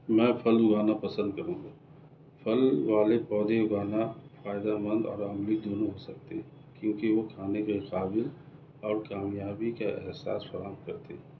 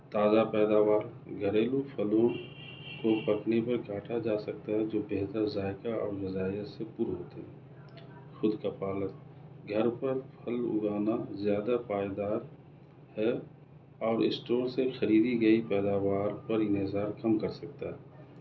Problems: none marked